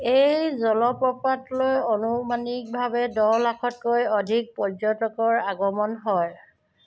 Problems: background sounds at intervals